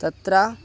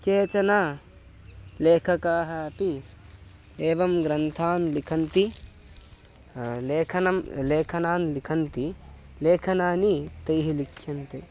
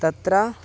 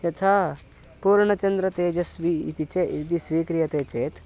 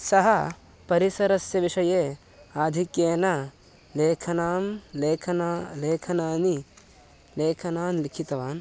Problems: constant background noise